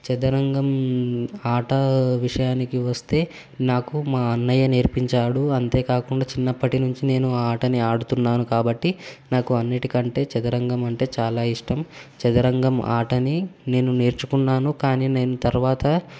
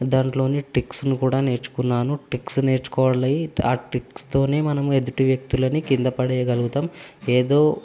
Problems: constant background noise